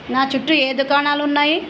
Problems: constant background noise